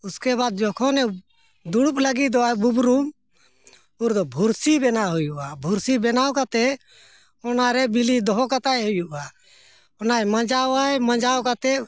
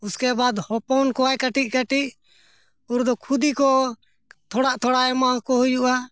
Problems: background sounds at intervals